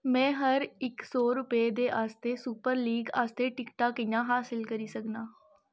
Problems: none marked